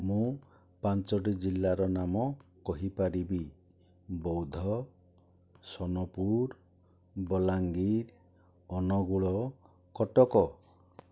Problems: none marked